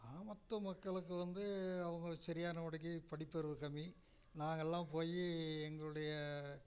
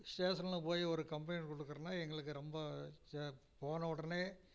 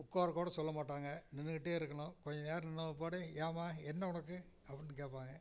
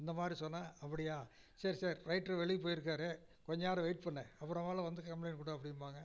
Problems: low volume